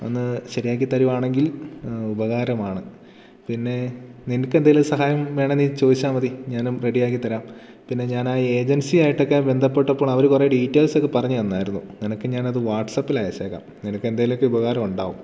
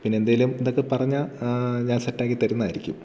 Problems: none marked